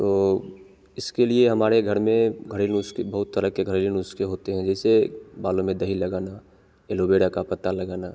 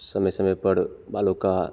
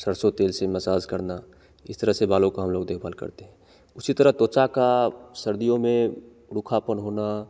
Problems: constant background noise